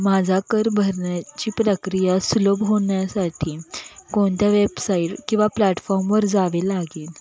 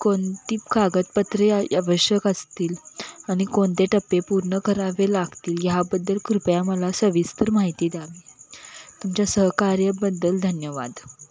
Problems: none marked